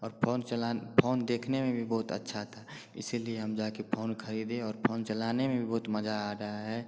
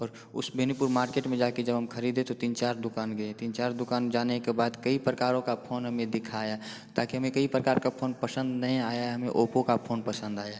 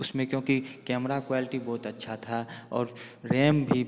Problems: constant background noise